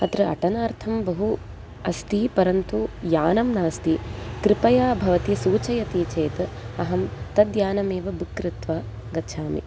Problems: constant background noise